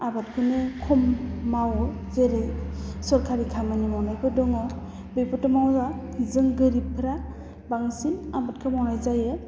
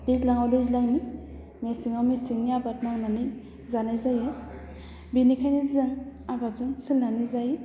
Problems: low volume